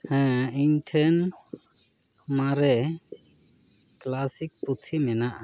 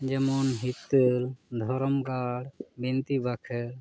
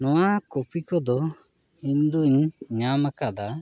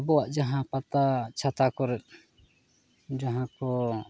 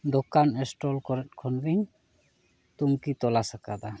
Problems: none marked